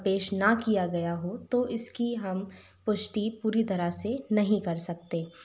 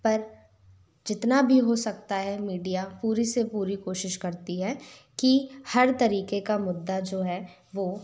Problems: none marked